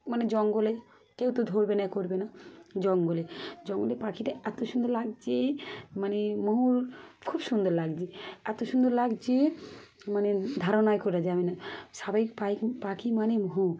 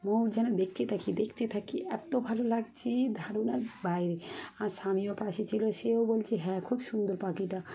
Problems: constant background noise, background conversations at intervals